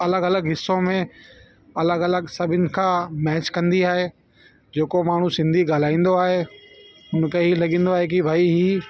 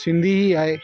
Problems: constant background noise